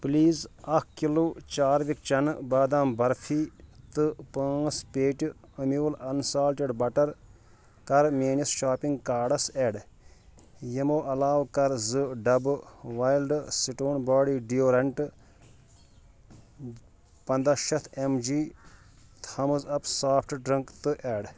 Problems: background sounds at intervals